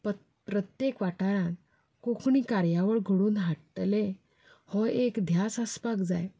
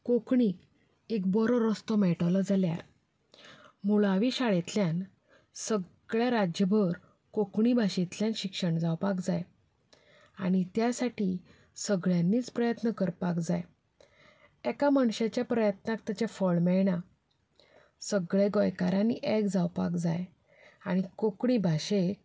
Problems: none marked